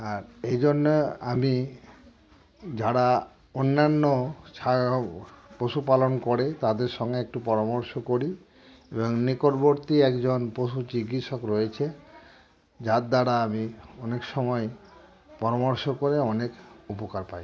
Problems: constant background noise